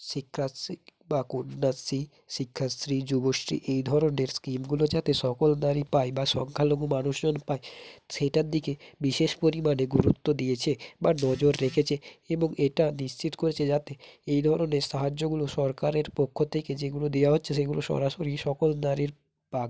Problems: constant background noise